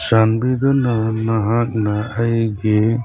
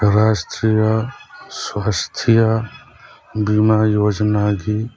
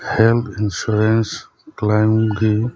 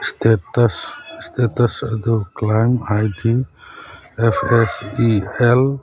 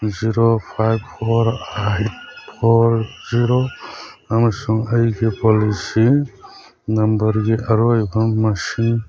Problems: background sounds at intervals, background conversations at intervals